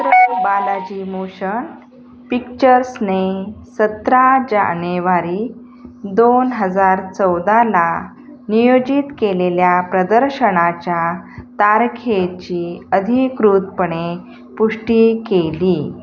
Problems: background sounds at intervals